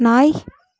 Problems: background conversations at intervals